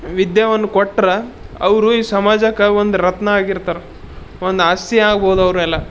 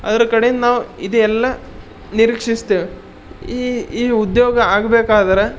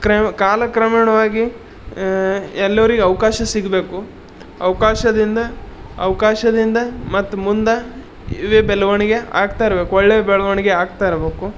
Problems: none marked